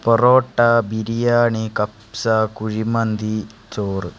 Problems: constant background noise